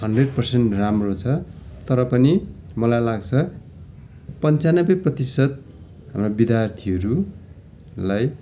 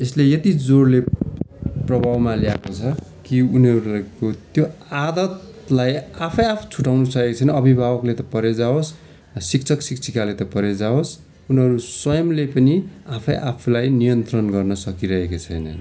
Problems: constant background noise, continuous background conversations